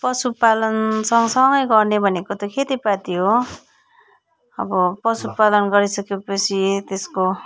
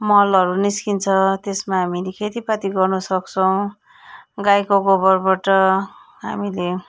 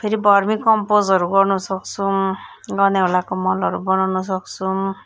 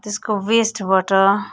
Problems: background sounds at intervals